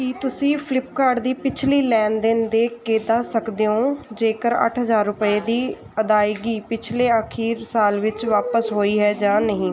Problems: constant background noise